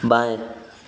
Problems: constant background noise, background conversations at intervals